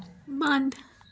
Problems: constant background noise, background conversations at intervals